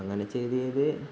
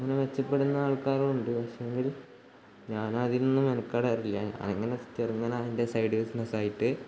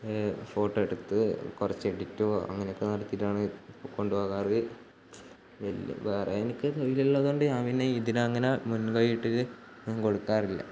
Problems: background sounds at intervals, low volume